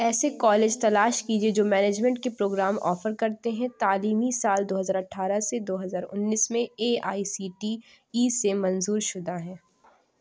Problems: none marked